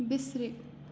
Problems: constant background noise